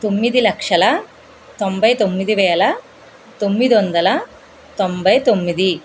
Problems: constant background noise